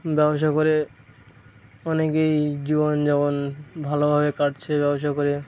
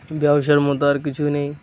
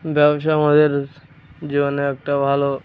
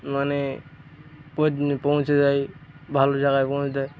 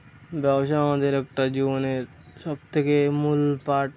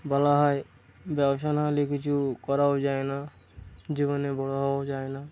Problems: constant background noise, background conversations at intervals